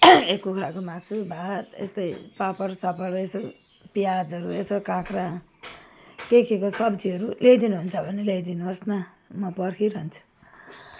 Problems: none marked